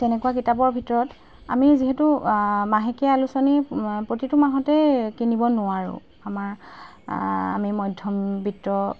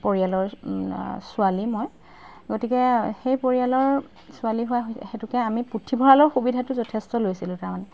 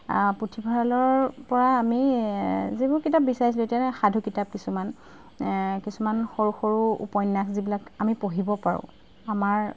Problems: background sounds at intervals